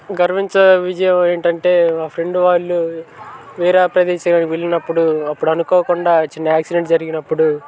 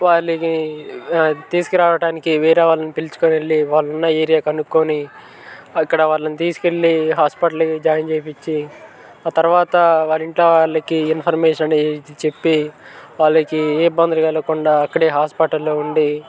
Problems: constant background noise, continuous background conversations